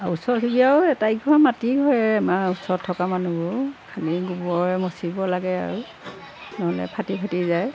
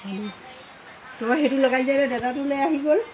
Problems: constant background noise